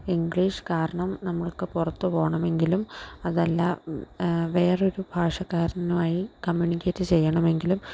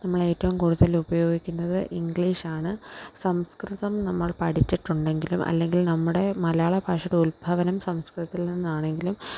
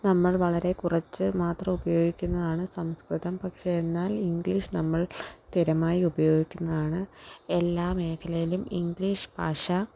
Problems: background sounds at intervals